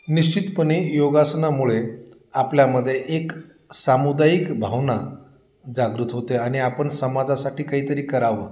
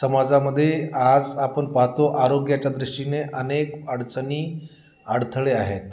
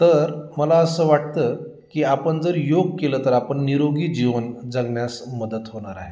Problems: none marked